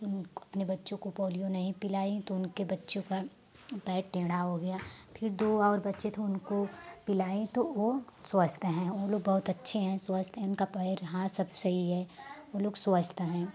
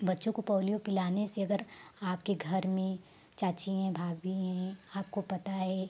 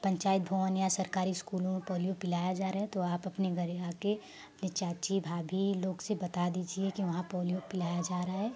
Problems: constant background noise